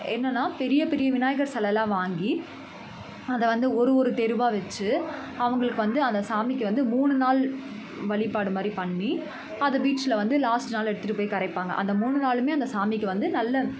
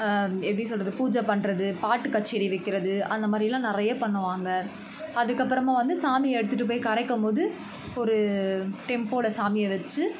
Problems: constant background noise, continuous background conversations